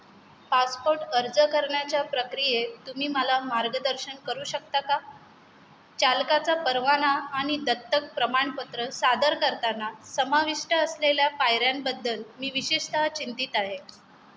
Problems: none marked